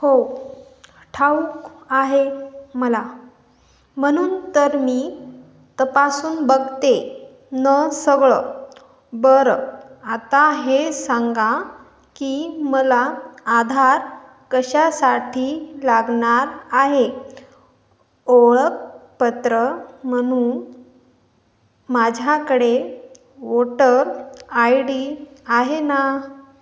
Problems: none marked